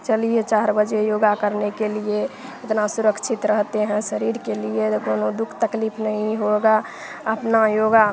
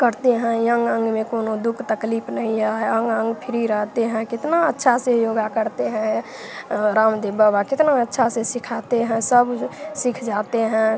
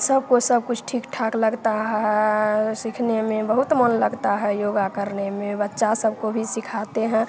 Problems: constant background noise